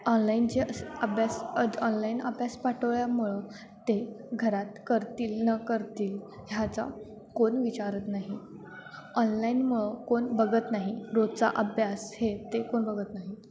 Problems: constant background noise, continuous background conversations